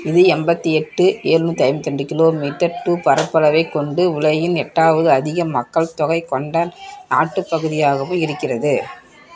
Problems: continuous background conversations